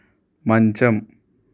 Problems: constant background noise